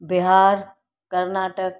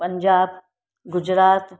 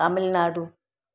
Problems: none marked